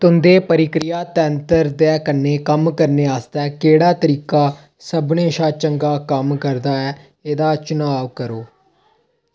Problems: none marked